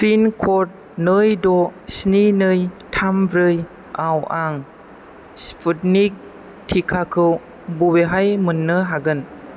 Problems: constant background noise